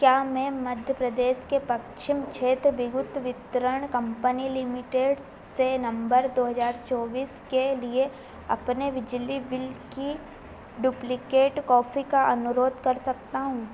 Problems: constant background noise